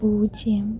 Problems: low volume